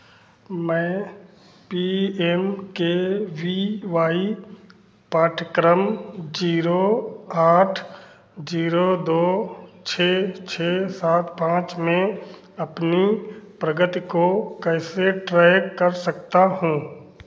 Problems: none marked